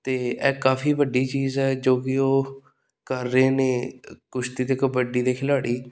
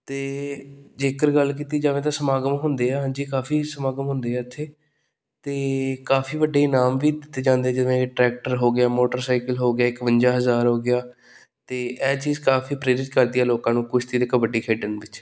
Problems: none marked